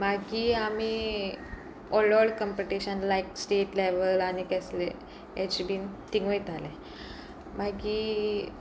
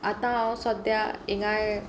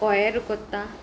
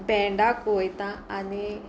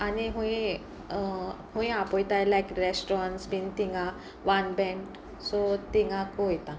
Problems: constant background noise, background conversations at intervals